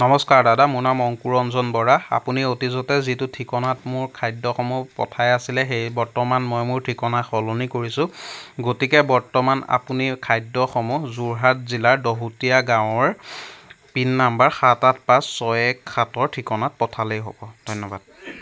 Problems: constant background noise